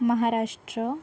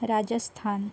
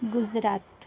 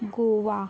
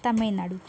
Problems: background sounds at intervals, background conversations at intervals